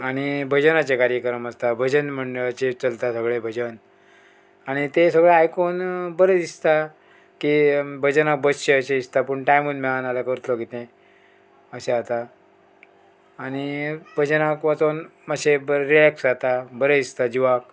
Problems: background sounds at intervals